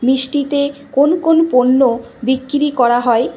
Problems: constant background noise